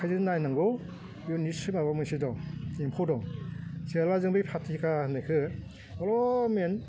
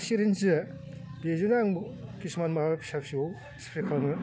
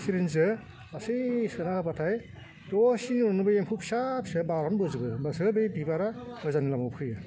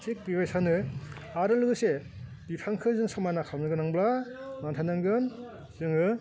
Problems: constant background noise